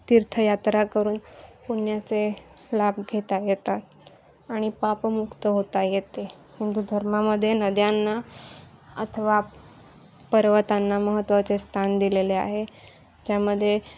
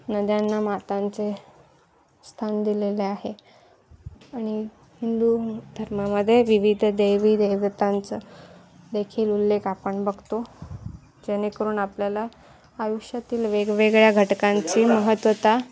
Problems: constant background noise